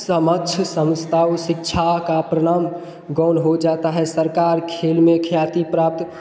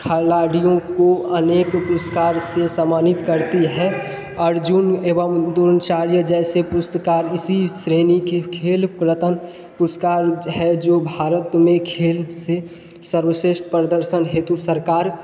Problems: background sounds at intervals